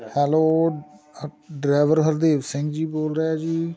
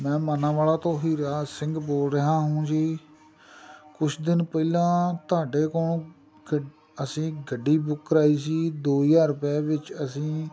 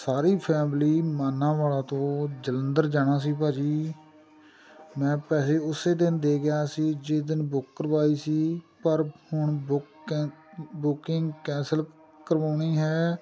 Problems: constant background noise, background conversations at intervals